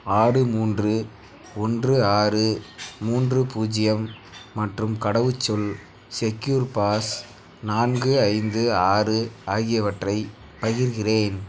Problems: background sounds at intervals